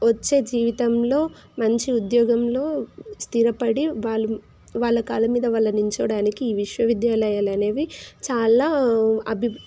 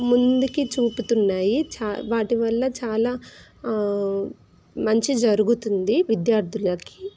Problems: constant background noise